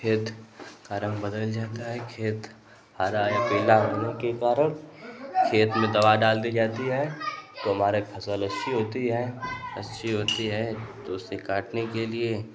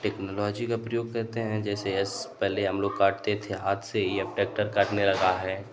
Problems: none marked